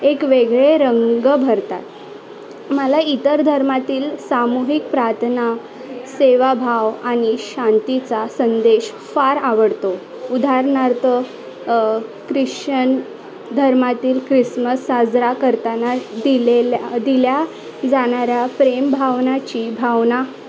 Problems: constant background noise, continuous background conversations